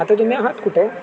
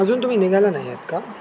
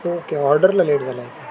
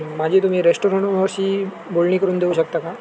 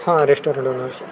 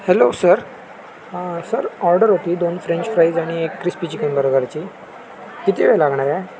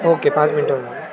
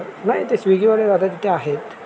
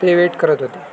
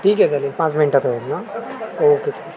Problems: constant background noise